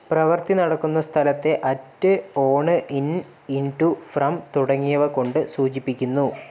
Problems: none marked